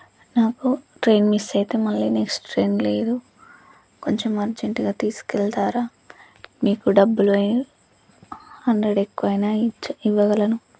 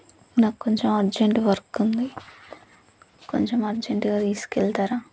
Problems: low volume